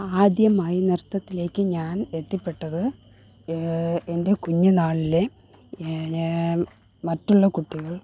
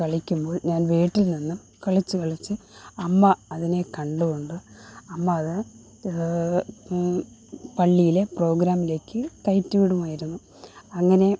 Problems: none marked